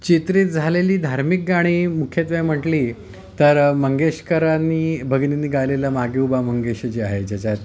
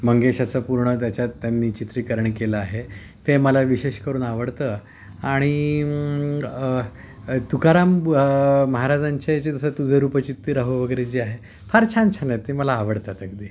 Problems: background sounds at intervals, background conversations at intervals